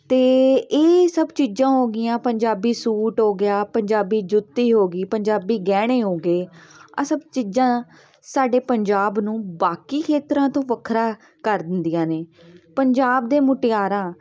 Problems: background sounds at intervals, continuous background conversations